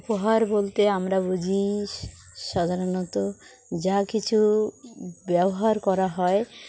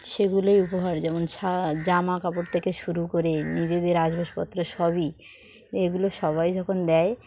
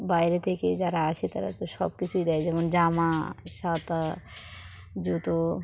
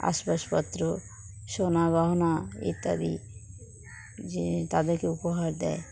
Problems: constant background noise, continuous background conversations